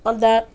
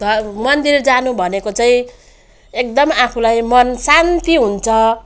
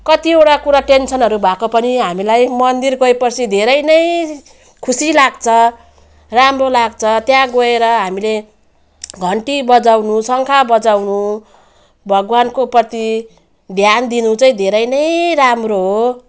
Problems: none marked